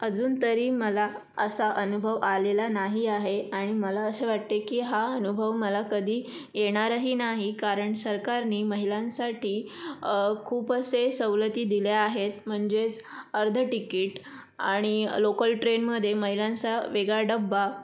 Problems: constant background noise